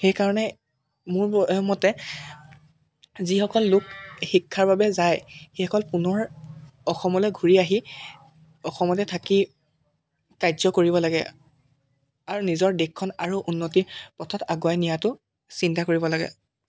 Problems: none marked